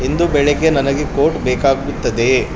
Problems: constant background noise